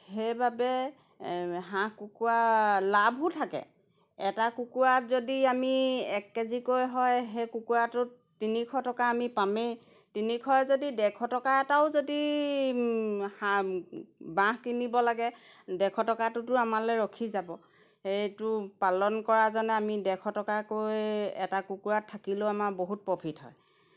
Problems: background sounds at intervals